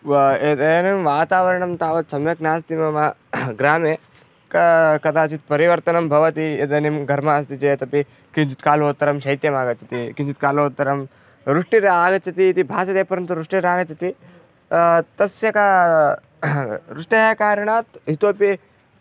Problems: none marked